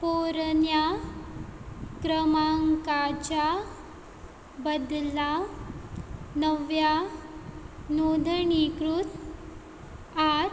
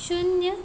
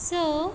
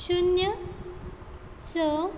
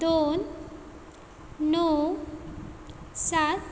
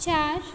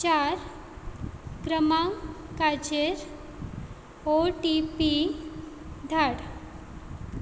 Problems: none marked